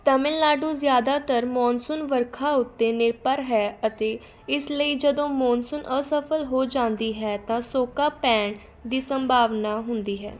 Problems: continuous background conversations